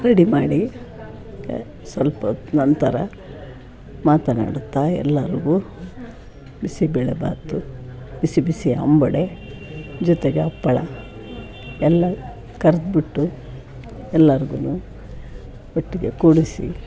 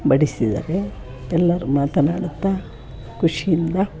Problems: background sounds at intervals, background conversations at intervals